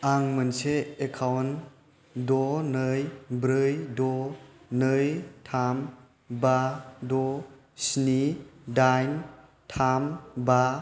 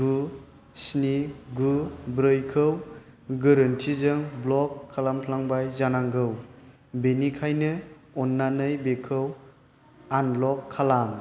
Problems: constant background noise